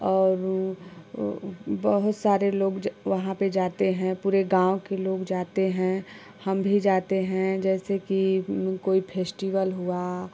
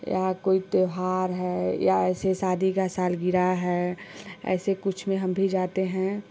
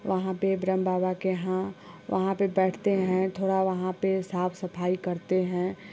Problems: constant background noise, background conversations at intervals